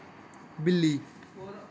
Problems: background sounds at intervals